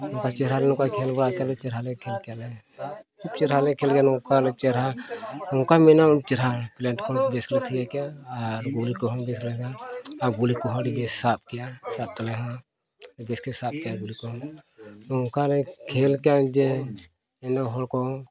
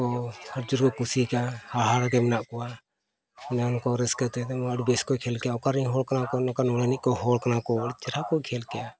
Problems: background sounds at intervals, background conversations at intervals